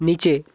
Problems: background sounds at intervals